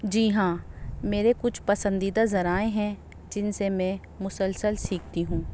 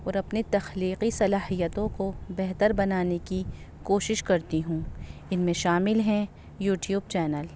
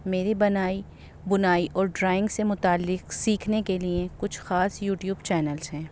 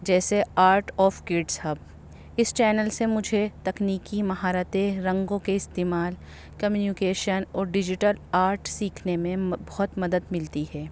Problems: constant background noise